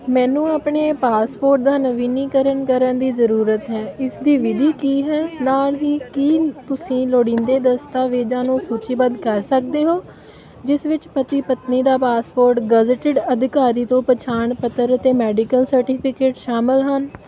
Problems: none marked